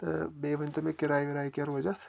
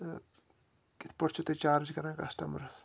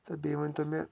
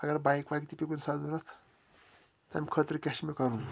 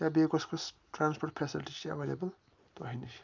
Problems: background sounds at intervals